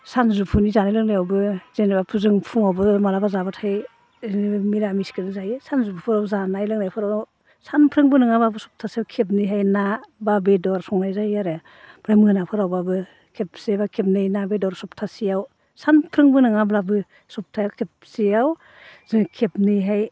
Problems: low volume